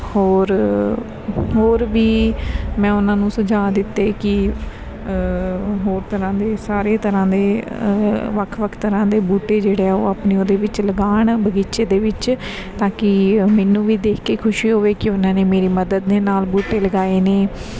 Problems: background sounds at intervals